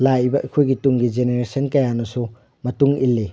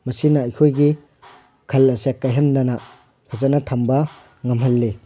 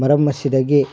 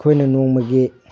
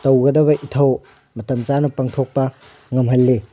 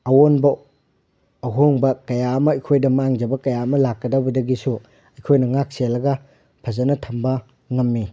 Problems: none marked